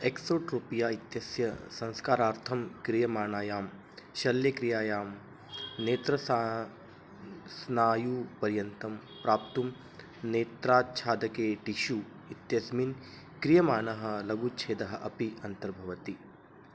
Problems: background sounds at intervals, low volume